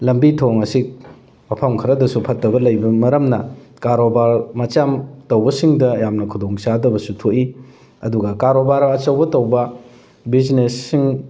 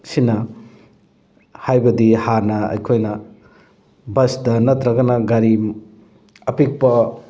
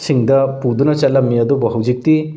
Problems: background sounds at intervals, background conversations at intervals